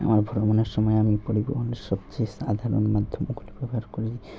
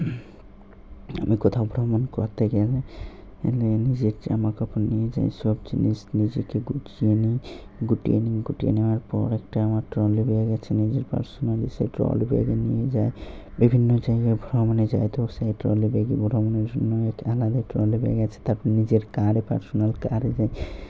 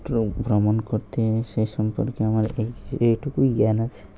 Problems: constant background noise